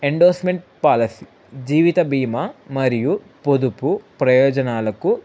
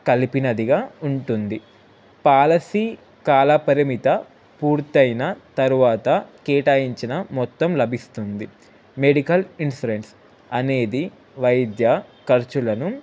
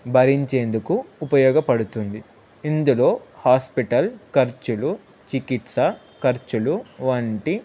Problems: constant background noise